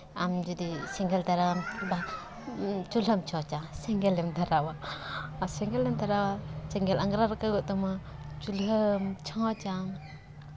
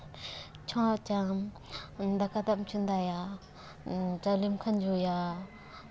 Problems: none marked